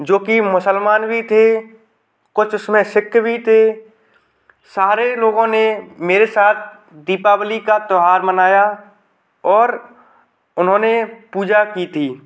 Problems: background sounds at intervals